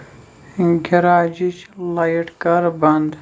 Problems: constant background noise